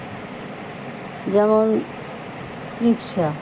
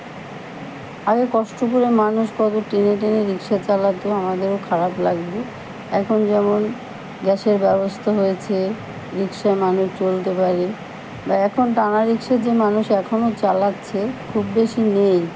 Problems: none marked